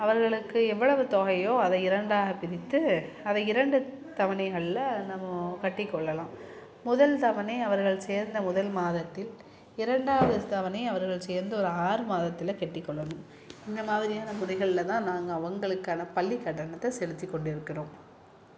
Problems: background sounds at intervals